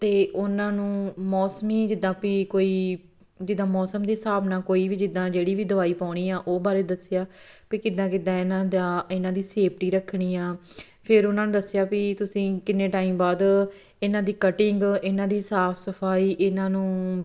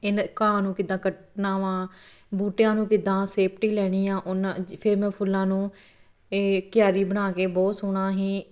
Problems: none marked